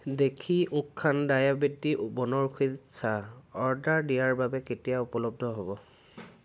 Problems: constant background noise